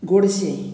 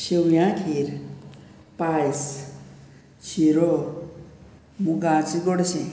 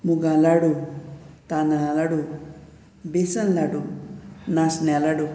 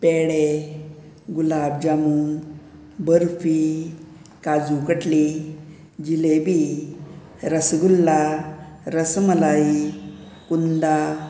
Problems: background sounds at intervals